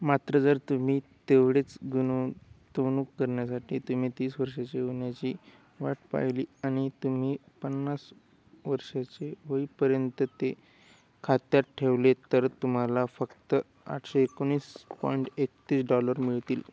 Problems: constant background noise